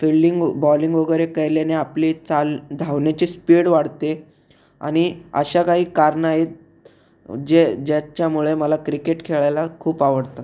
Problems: none marked